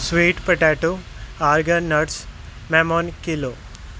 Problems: background sounds at intervals